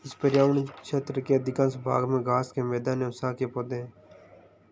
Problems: constant background noise, background conversations at intervals